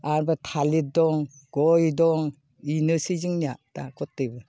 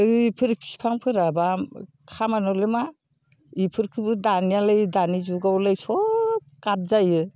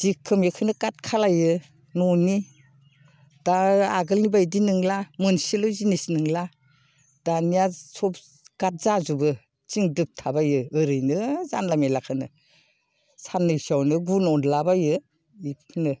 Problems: none marked